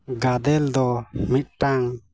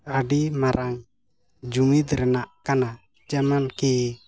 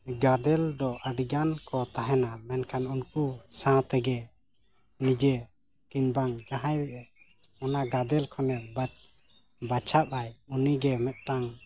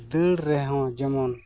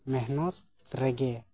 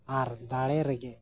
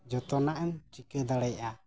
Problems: none marked